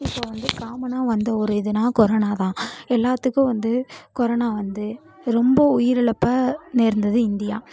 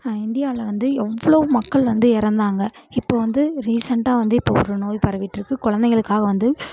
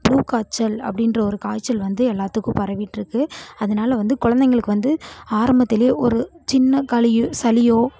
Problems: background sounds at intervals